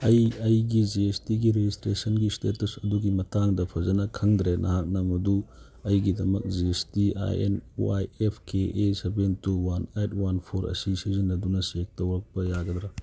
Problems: none marked